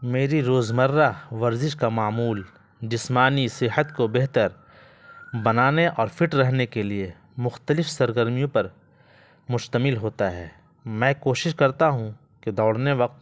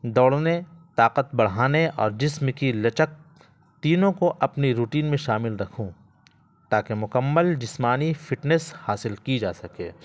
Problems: constant background noise